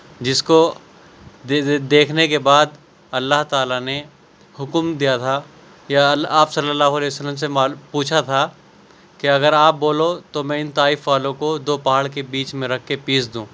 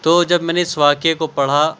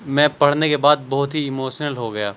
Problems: none marked